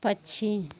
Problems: constant background noise